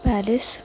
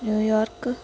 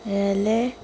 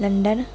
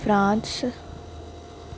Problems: constant background noise